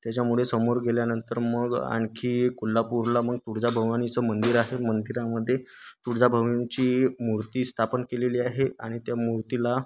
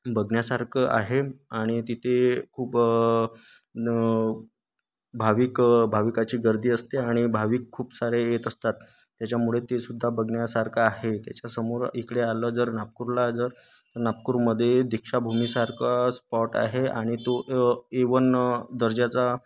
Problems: none marked